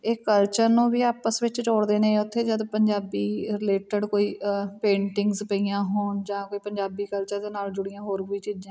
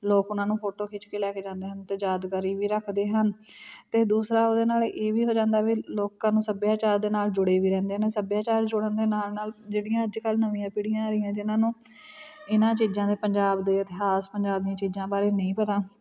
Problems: background sounds at intervals, background conversations at intervals